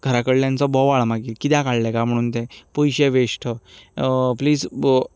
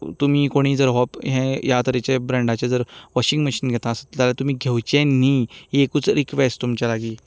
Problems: background sounds at intervals